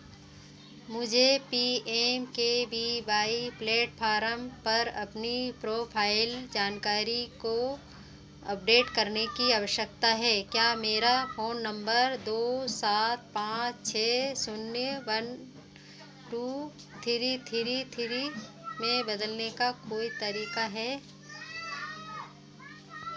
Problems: none marked